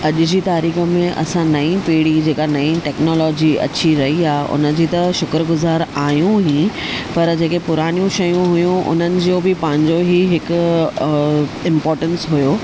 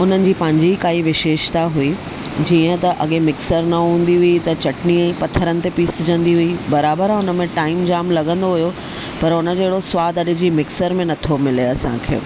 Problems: constant background noise